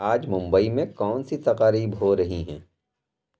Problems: background sounds at intervals